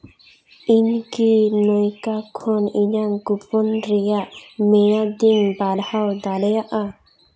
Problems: background sounds at intervals, echo